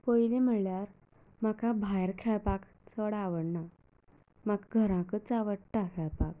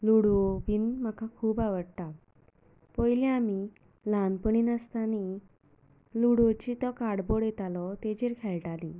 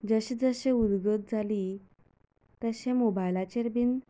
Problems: low volume